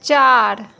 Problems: constant background noise